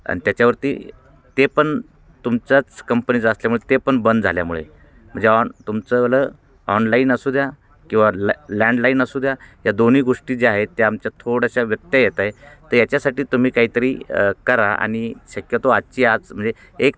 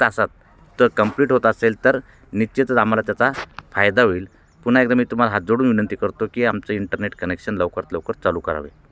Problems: constant background noise, background conversations at intervals